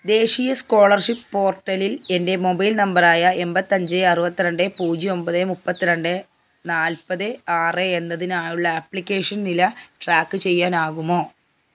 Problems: background sounds at intervals